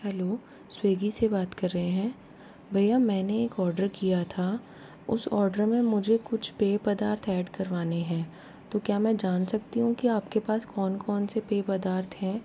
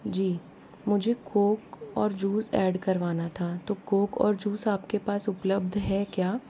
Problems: low volume